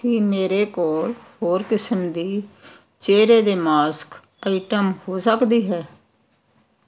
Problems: constant background noise